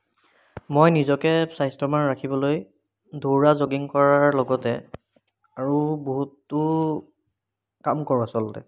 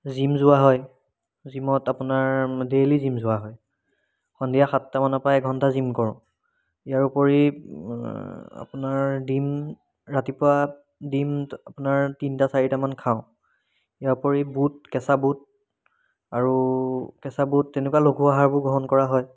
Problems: background sounds at intervals